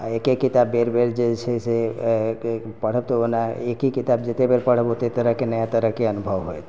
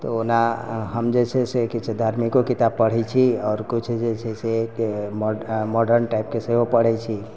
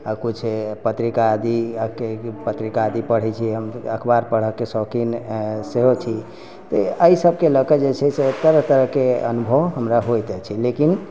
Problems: background sounds at intervals